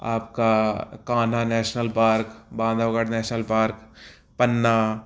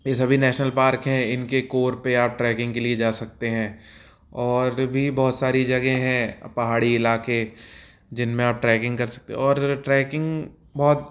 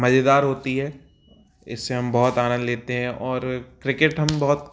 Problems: background sounds at intervals